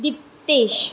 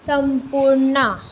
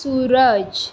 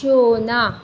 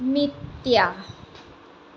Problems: constant background noise